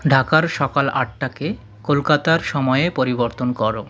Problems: background conversations at intervals